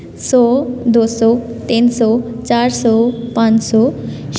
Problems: background sounds at intervals